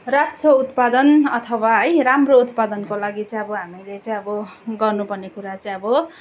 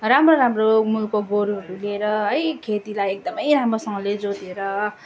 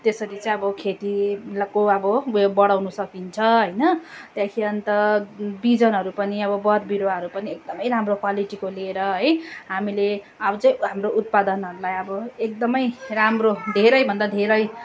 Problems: continuous background conversations